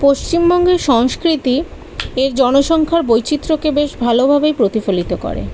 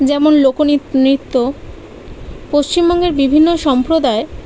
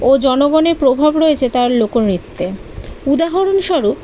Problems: none marked